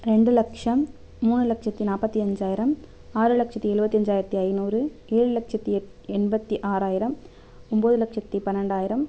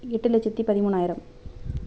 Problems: none marked